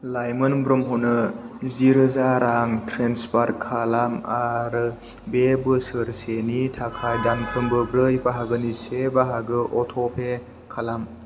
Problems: low volume